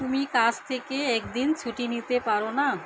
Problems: constant background noise